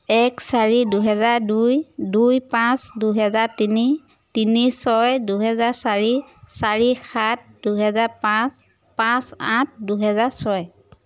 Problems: background sounds at intervals